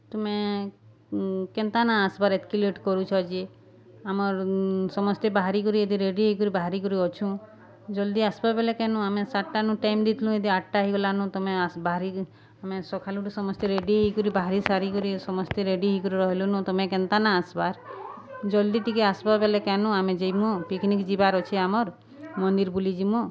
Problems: constant background noise, continuous background conversations